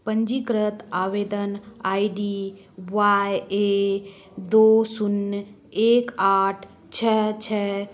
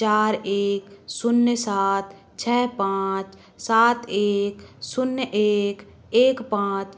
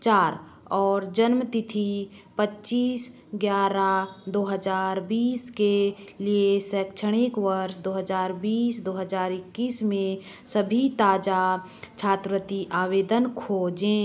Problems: none marked